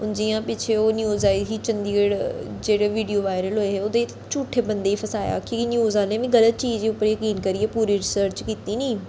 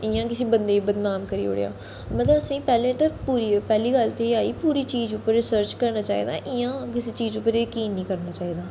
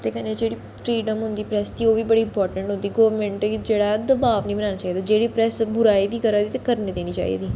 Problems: constant background noise, echo